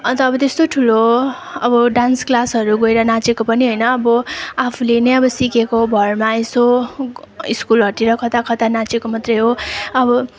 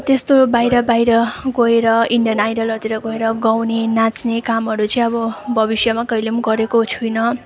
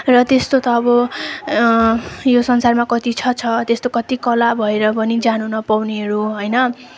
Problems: background sounds at intervals, continuous background conversations